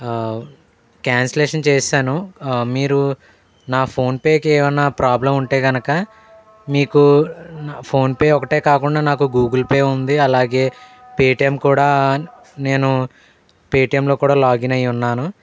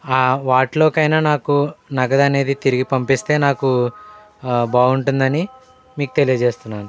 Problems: background sounds at intervals, background conversations at intervals